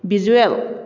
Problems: none marked